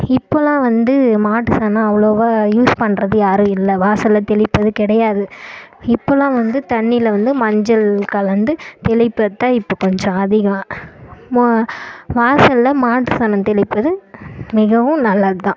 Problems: none marked